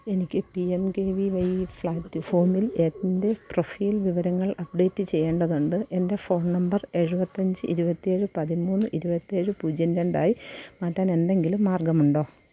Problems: constant background noise, low volume